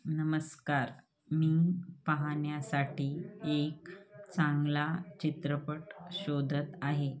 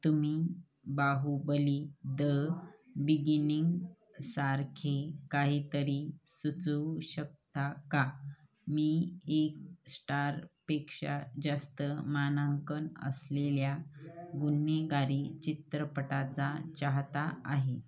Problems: background sounds at intervals